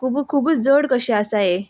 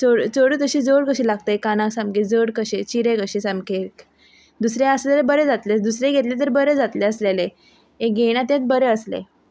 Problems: background sounds at intervals